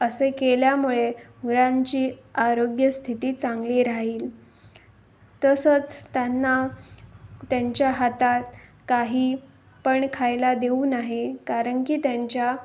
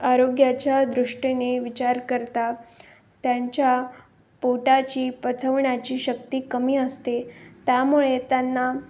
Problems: constant background noise